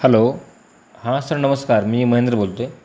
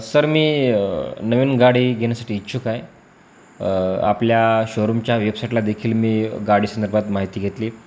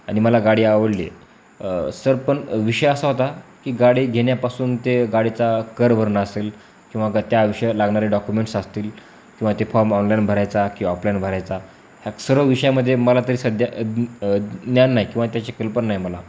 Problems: constant background noise, background conversations at intervals